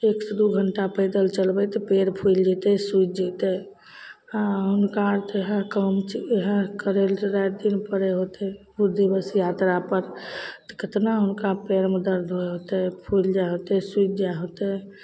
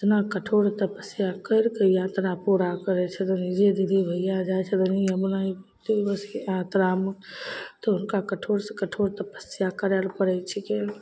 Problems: none marked